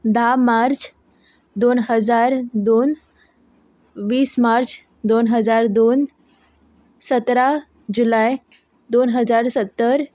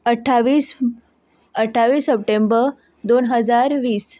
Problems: background sounds at intervals